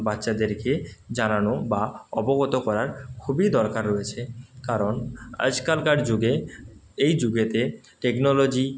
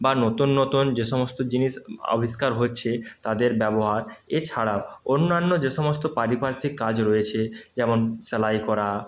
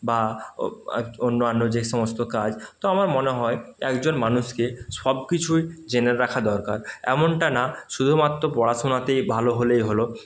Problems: none marked